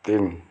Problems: background sounds at intervals